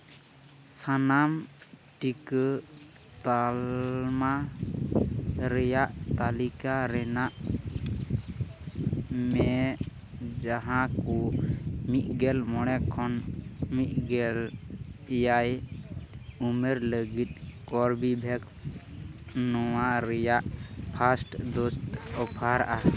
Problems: constant background noise, background conversations at intervals